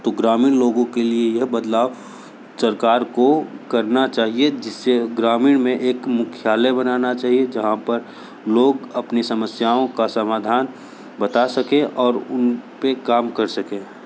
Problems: none marked